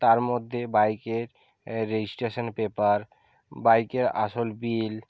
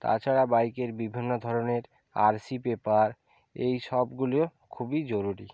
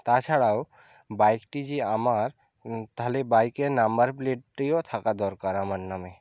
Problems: none marked